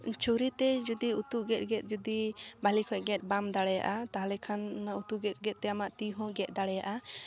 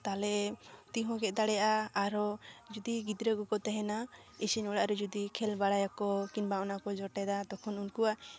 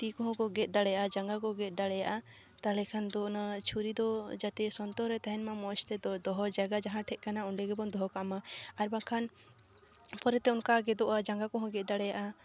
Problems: background sounds at intervals